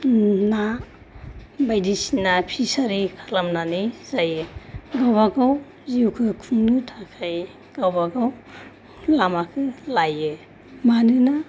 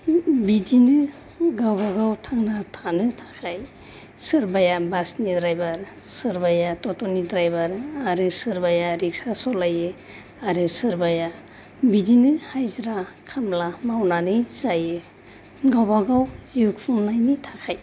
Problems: none marked